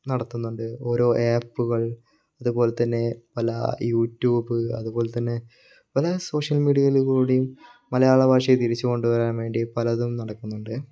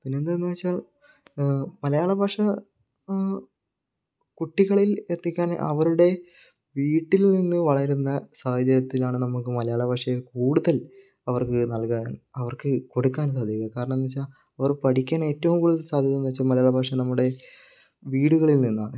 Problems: low volume